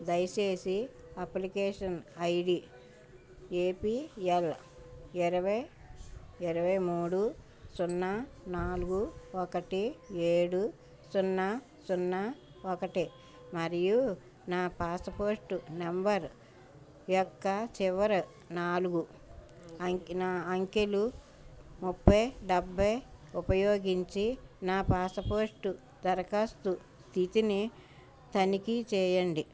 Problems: background sounds at intervals